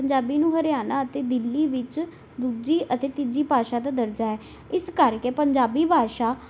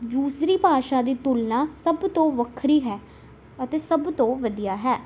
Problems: none marked